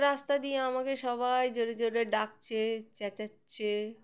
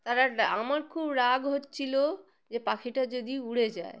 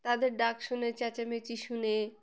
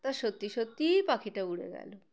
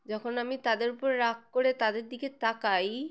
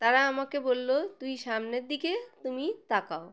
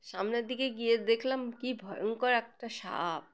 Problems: background sounds at intervals